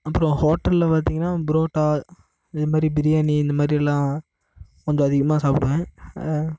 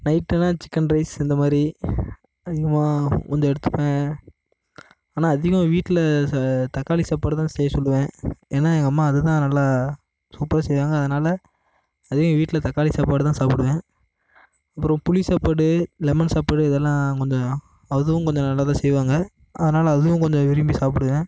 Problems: constant background noise